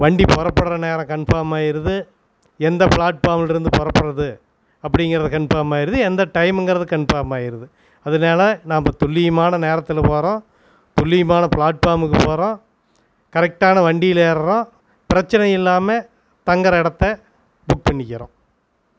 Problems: constant background noise